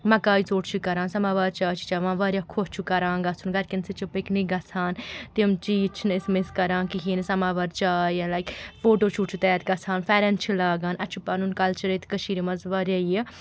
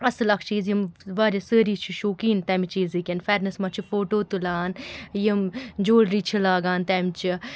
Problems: constant background noise